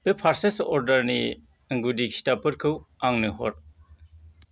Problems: none marked